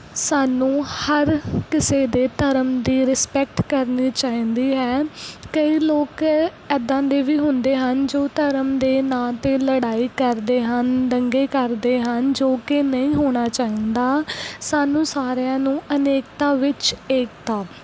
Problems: none marked